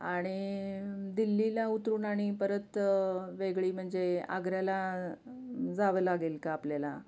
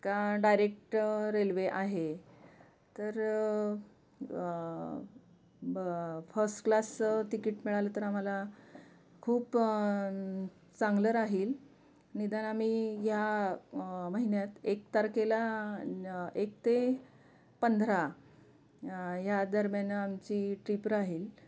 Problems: constant background noise, continuous background conversations